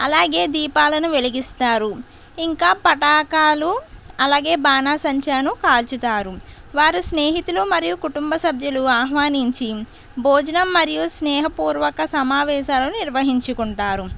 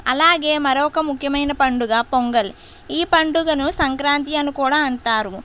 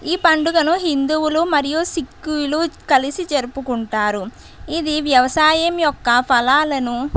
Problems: constant background noise